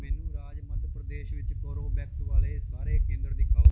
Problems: background sounds at intervals